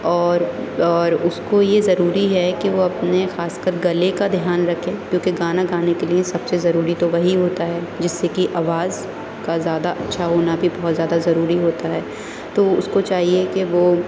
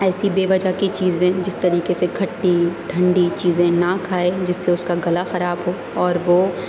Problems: constant background noise